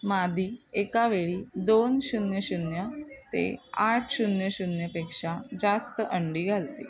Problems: constant background noise, background conversations at intervals